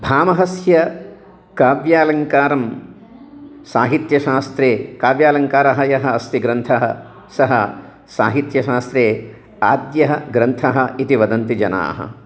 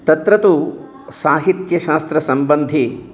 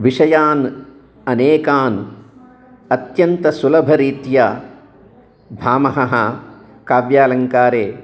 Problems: none marked